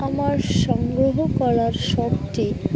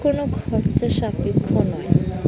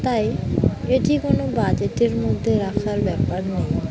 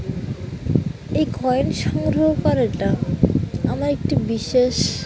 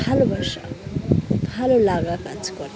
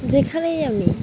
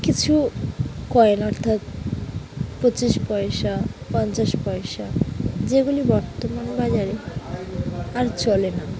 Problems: continuous background conversations